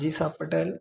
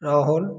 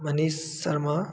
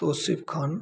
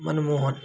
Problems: none marked